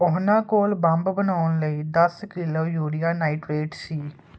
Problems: none marked